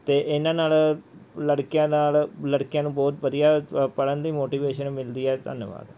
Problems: none marked